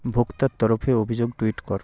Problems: continuous background conversations